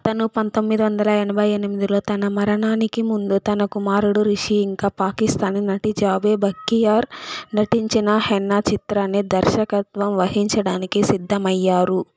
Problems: constant background noise